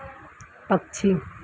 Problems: low volume